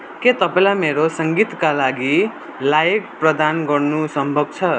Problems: none marked